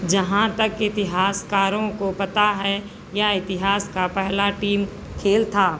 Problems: constant background noise